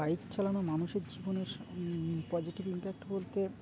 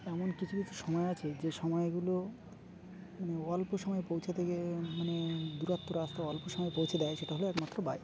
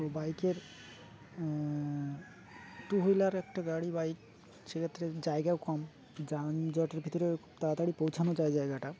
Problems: constant background noise, background conversations at intervals